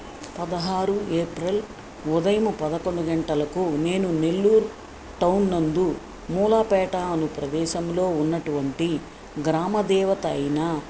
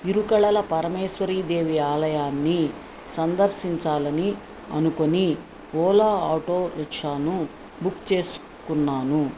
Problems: constant background noise